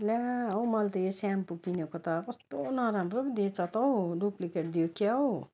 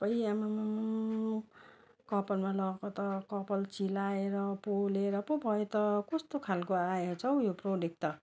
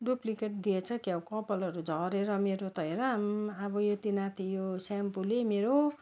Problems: constant background noise